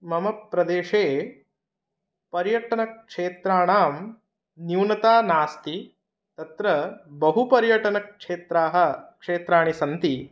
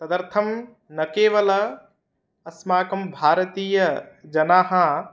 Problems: none marked